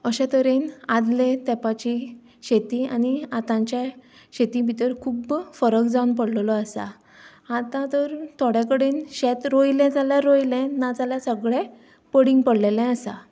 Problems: background sounds at intervals